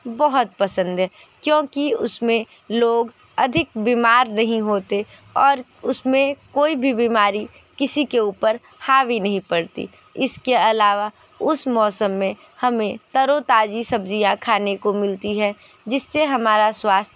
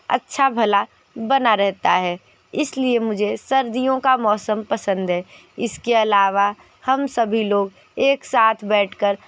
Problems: constant background noise, background conversations at intervals